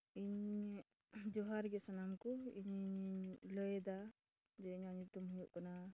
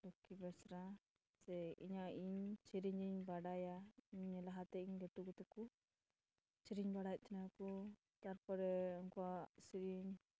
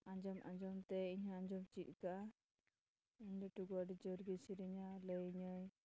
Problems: background sounds at intervals, low volume